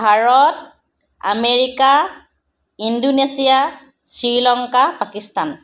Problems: none marked